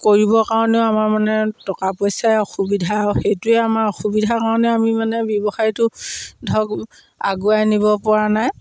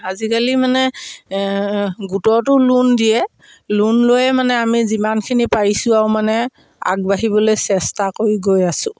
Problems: background sounds at intervals, background conversations at intervals